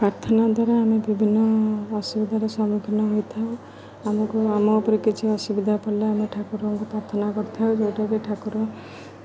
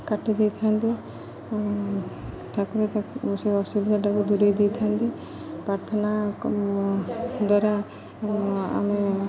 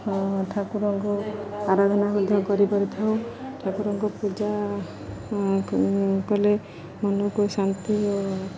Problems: constant background noise, background conversations at intervals